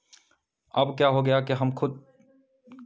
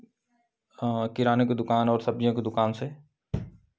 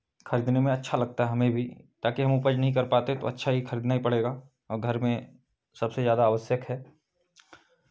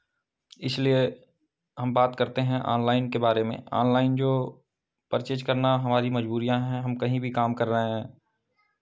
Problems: background sounds at intervals